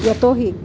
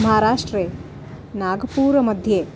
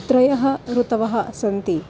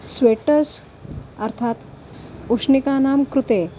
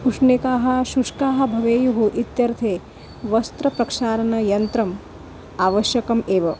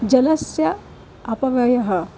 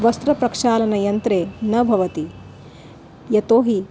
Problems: none marked